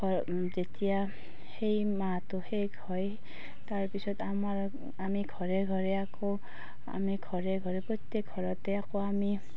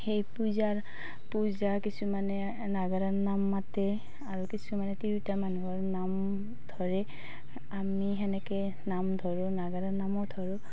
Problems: none marked